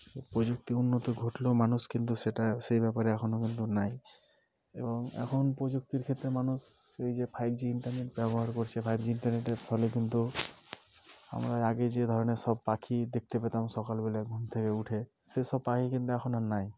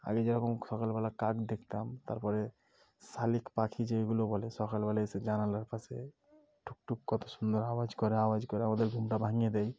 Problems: none marked